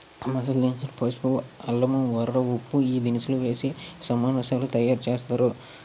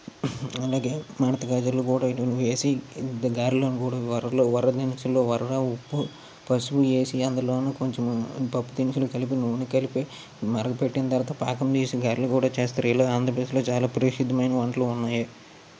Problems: constant background noise